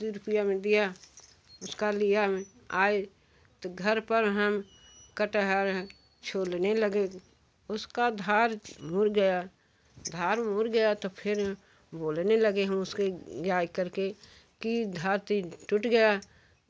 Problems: background sounds at intervals, background conversations at intervals